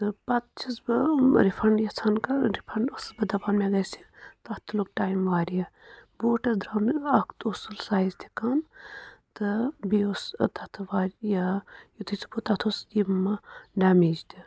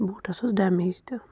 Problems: none marked